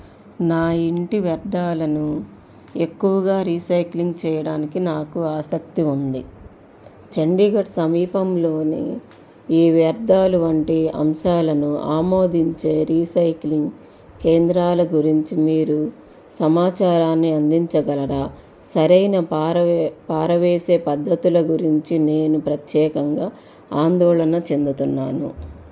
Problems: none marked